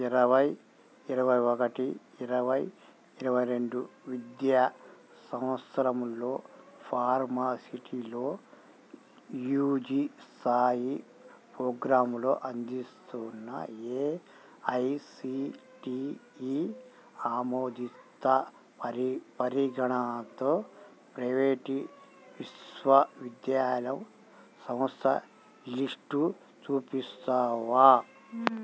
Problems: constant background noise